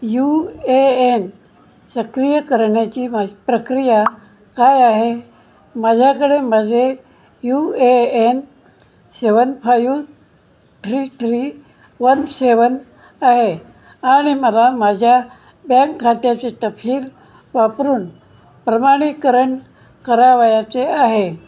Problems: none marked